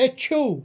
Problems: none marked